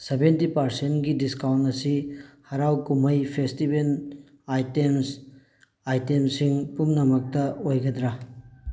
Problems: background sounds at intervals